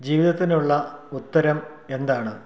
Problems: none marked